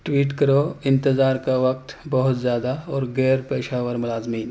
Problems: none marked